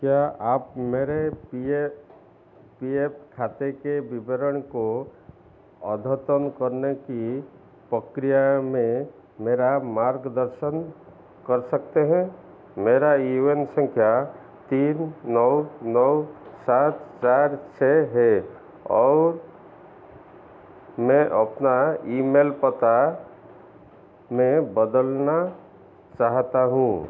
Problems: constant background noise, echo